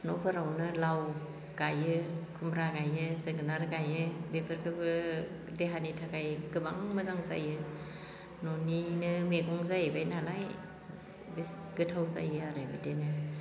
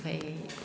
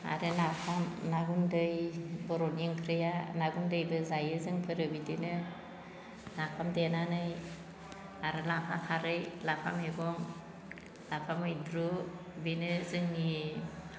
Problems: none marked